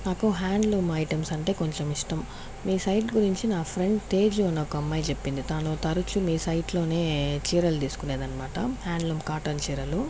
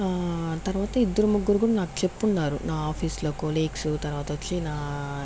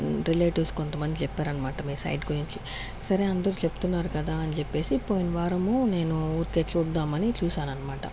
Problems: constant background noise